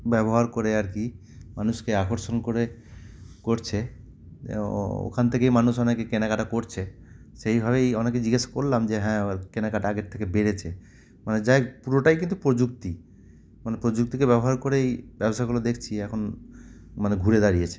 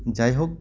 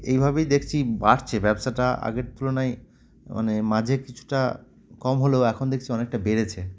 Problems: constant background noise